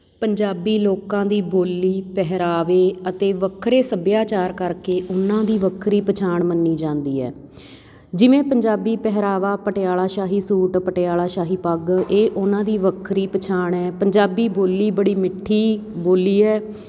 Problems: background sounds at intervals